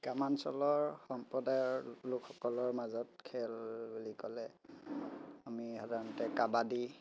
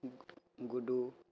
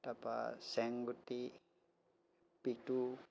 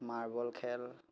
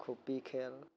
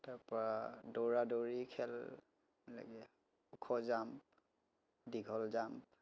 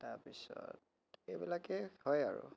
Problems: none marked